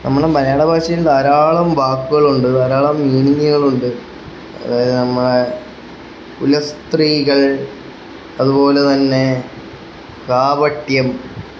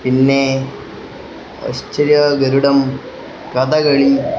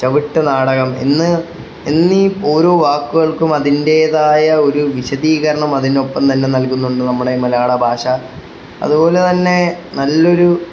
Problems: constant background noise